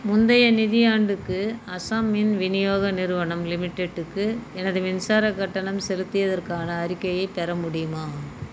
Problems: constant background noise